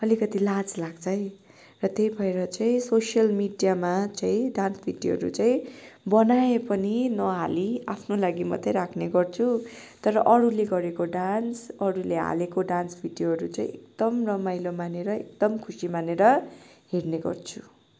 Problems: none marked